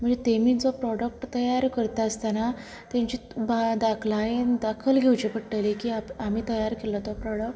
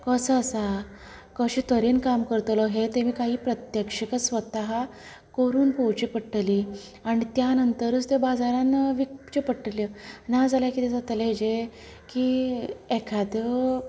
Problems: background sounds at intervals, background conversations at intervals